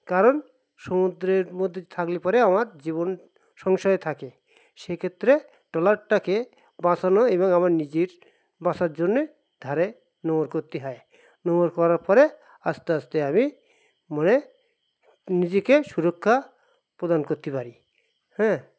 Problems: constant background noise